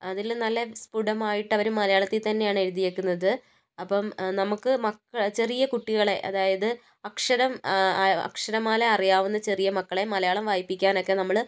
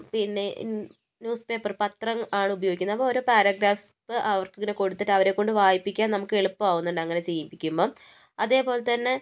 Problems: none marked